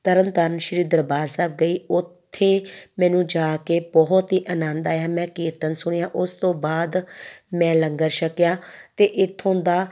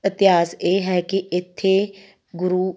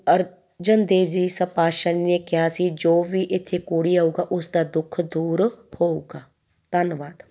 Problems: background sounds at intervals